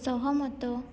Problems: low volume